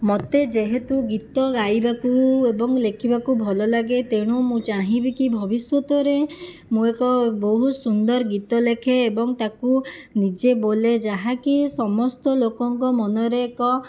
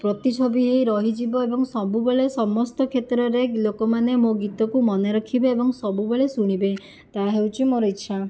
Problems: none marked